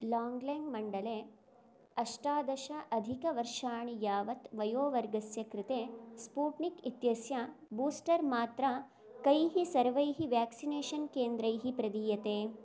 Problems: none marked